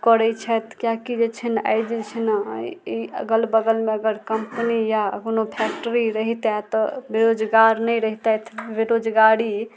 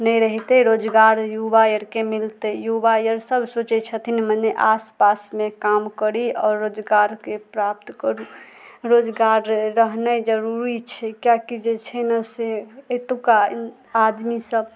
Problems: none marked